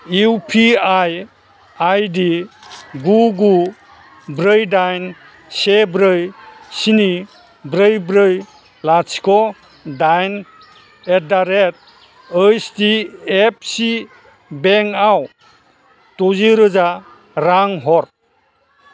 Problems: constant background noise